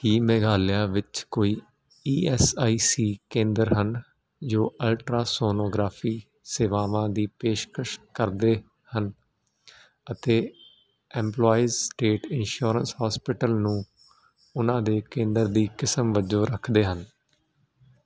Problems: constant background noise